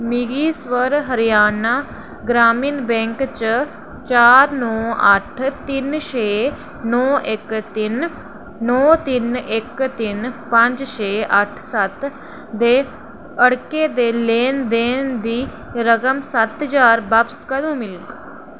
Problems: none marked